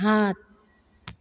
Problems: none marked